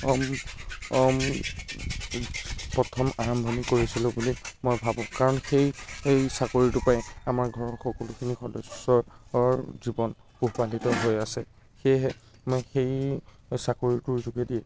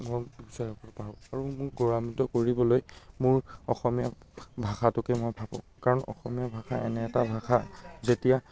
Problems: constant background noise